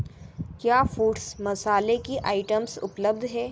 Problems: constant background noise